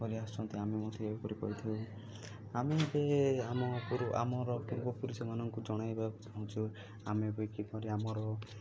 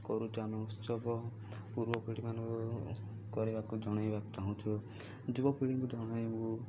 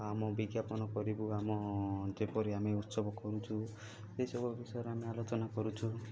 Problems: low volume